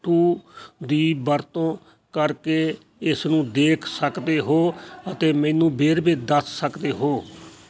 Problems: none marked